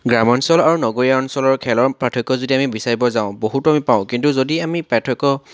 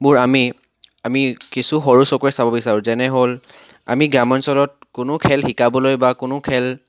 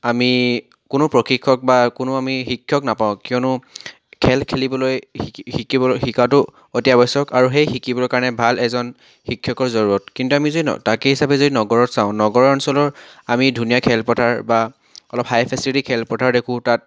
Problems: background sounds at intervals, background conversations at intervals